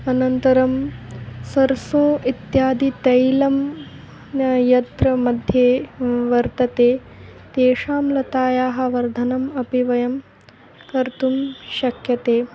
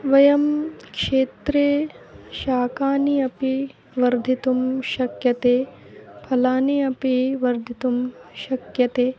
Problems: background sounds at intervals